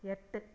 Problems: low volume